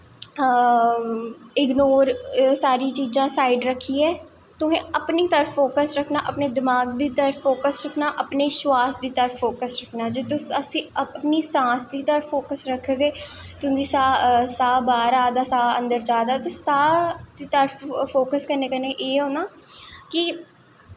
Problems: echo